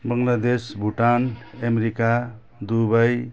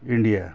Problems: background sounds at intervals